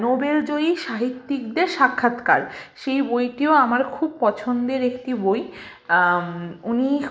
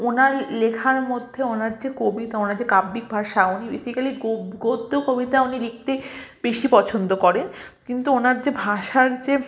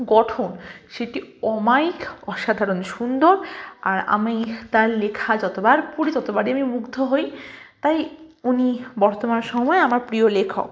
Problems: constant background noise, continuous background conversations